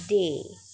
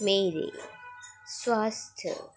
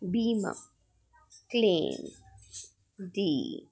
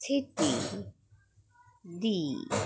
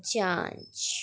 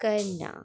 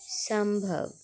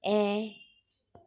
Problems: background sounds at intervals